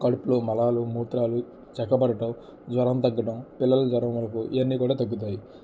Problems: constant background noise, low volume